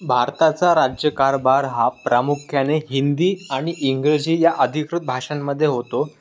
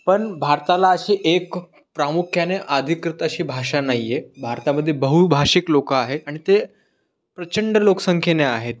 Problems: constant background noise